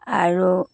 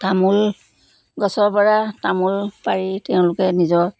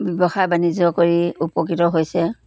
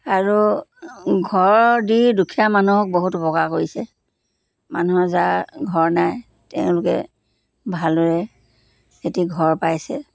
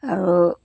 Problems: constant background noise